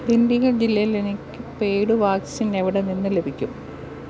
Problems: none marked